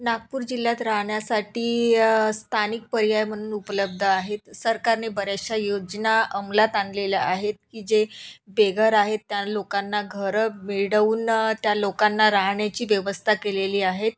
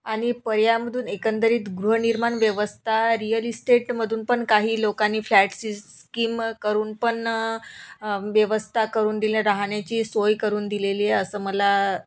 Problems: background sounds at intervals